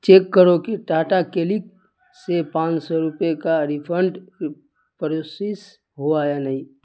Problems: constant background noise